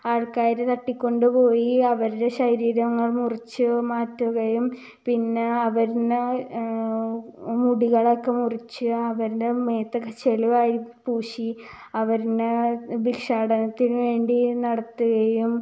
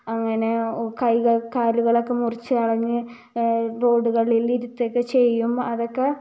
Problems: none marked